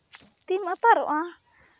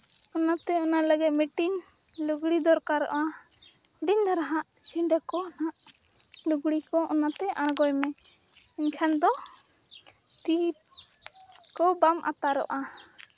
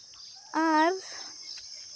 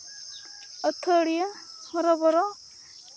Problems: constant background noise